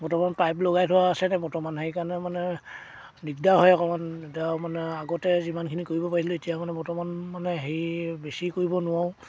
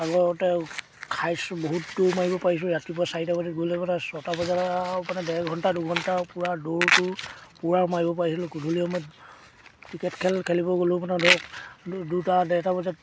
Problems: background sounds at intervals